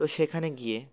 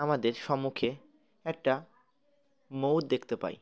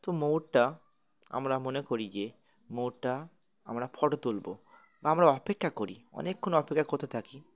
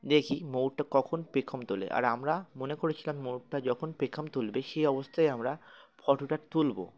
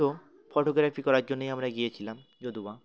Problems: constant background noise, continuous background conversations